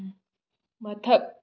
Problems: none marked